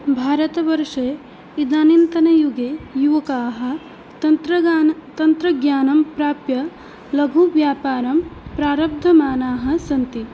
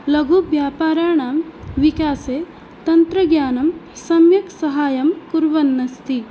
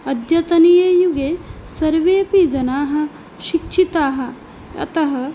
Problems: constant background noise